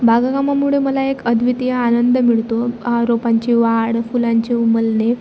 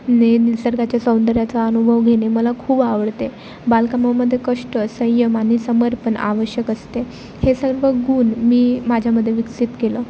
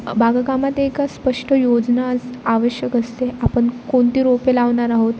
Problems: constant background noise, continuous background conversations